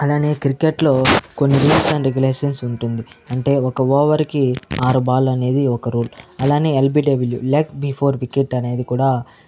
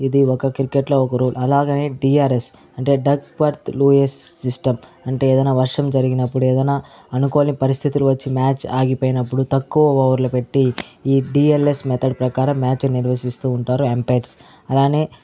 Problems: background sounds at intervals, background conversations at intervals